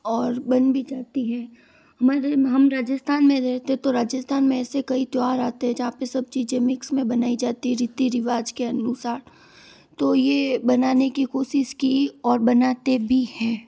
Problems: background sounds at intervals